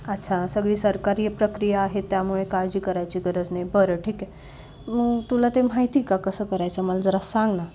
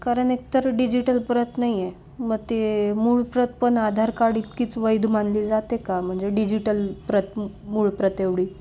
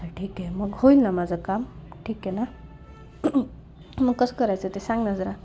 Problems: constant background noise, low volume